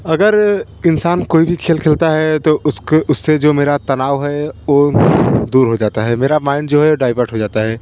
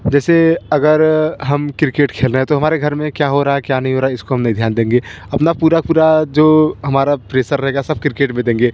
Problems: constant background noise